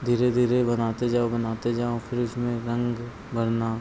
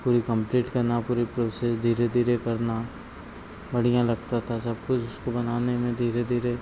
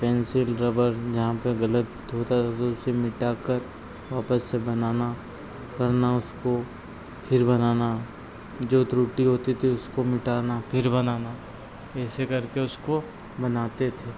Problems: constant background noise